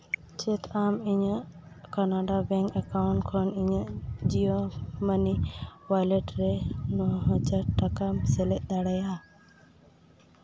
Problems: background sounds at intervals, low volume